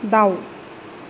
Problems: none marked